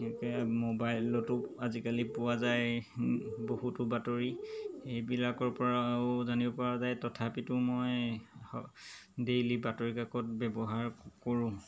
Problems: background sounds at intervals